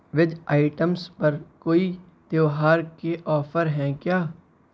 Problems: none marked